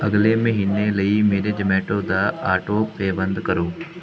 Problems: constant background noise